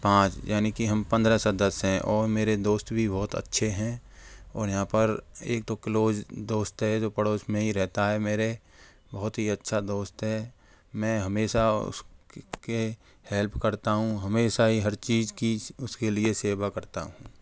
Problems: none marked